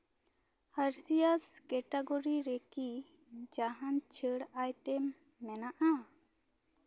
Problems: none marked